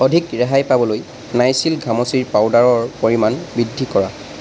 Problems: none marked